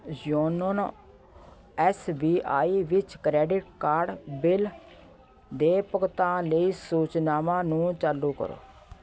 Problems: continuous background conversations